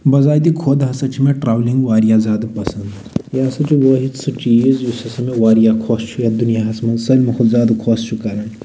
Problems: none marked